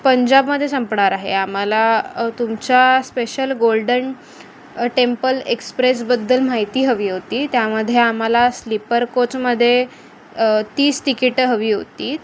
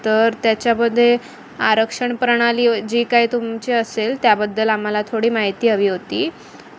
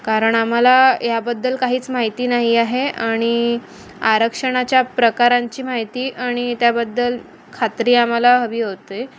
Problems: constant background noise